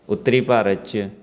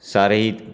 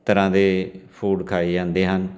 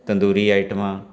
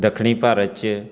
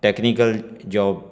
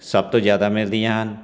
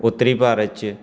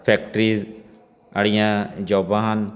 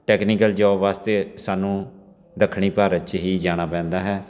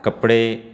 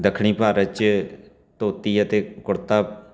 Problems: constant background noise, continuous background conversations